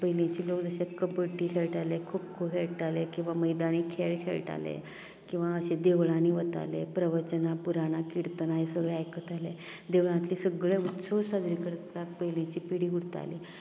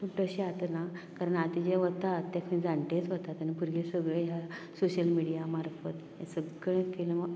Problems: low volume